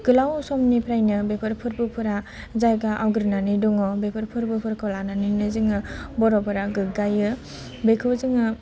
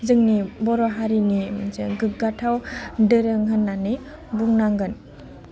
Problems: low volume